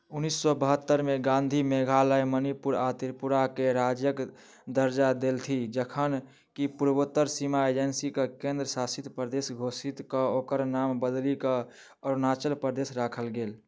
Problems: none marked